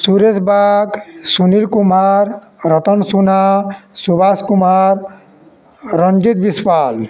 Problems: none marked